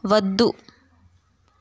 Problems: constant background noise